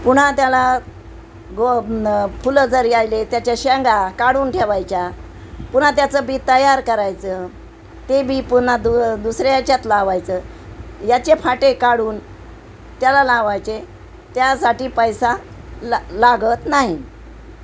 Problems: constant background noise